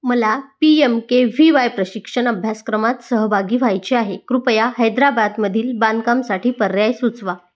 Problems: background sounds at intervals